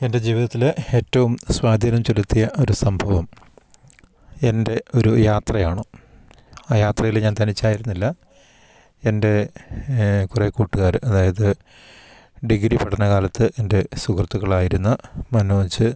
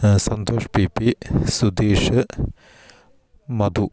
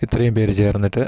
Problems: none marked